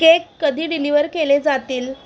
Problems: none marked